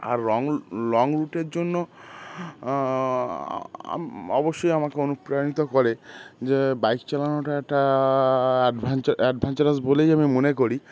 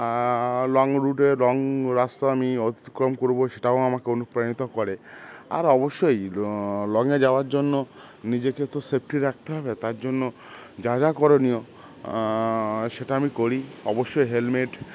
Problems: constant background noise